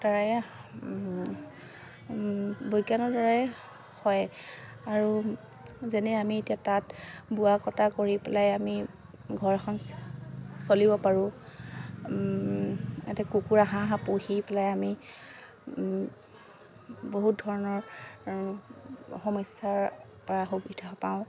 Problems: constant background noise